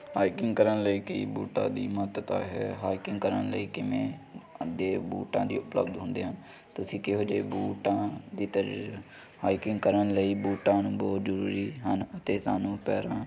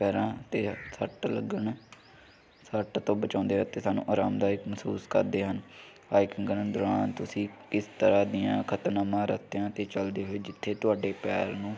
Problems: none marked